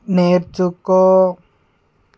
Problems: none marked